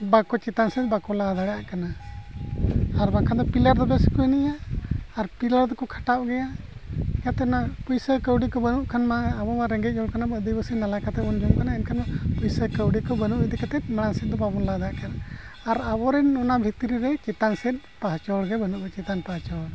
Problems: constant background noise